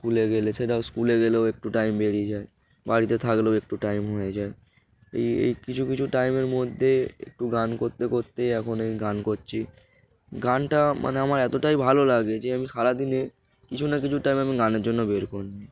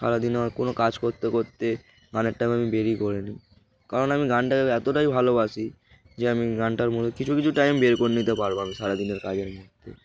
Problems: background sounds at intervals